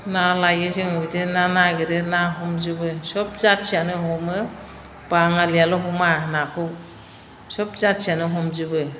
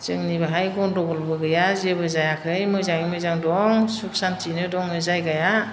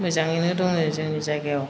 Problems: none marked